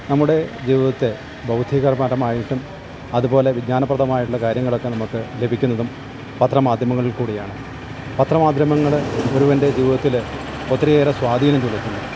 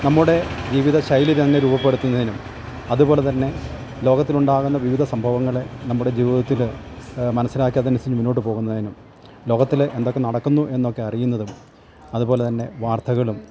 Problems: constant background noise, low volume